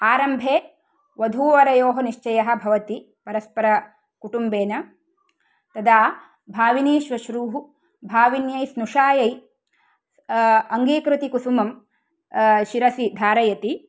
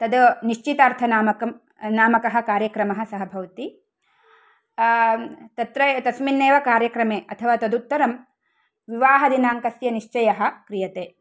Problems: none marked